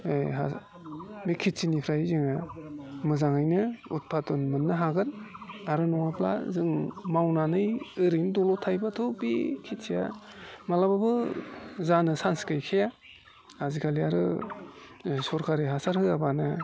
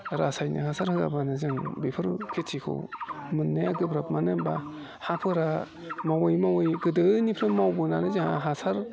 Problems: constant background noise